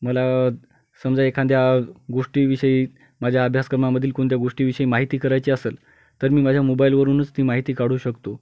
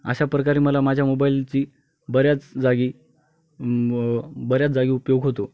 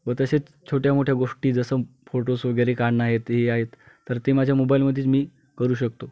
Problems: constant background noise